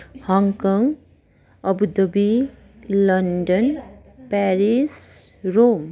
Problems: continuous background conversations